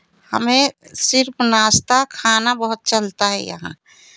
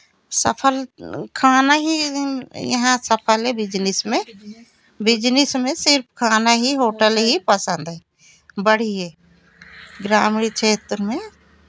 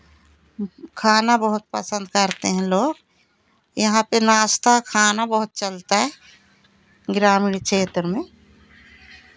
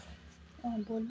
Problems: constant background noise, background conversations at intervals